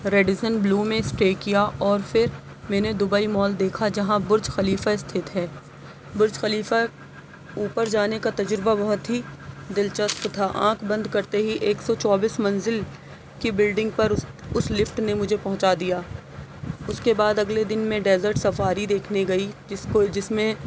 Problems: constant background noise